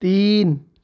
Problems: background sounds at intervals